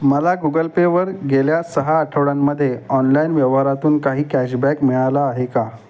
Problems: constant background noise